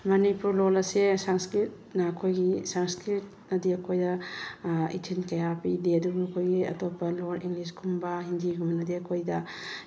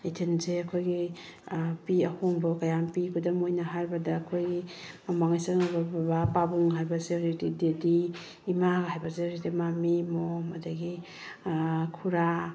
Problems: background sounds at intervals